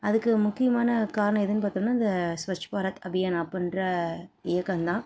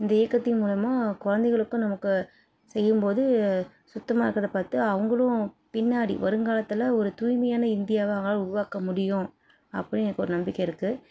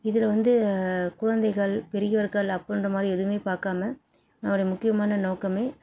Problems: none marked